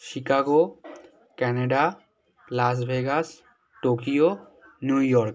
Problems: continuous background conversations